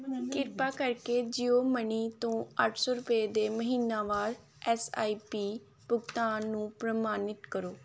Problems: background conversations at intervals